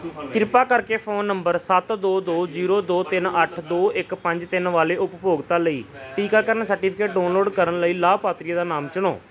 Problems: background conversations at intervals